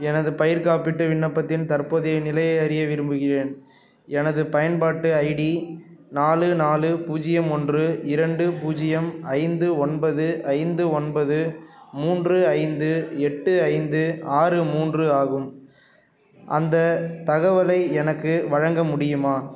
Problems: none marked